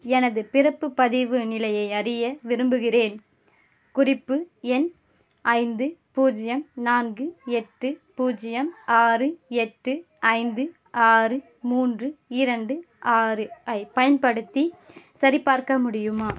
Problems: background sounds at intervals